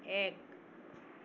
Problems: background sounds at intervals